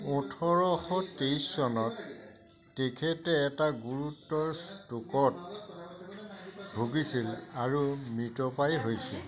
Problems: continuous background conversations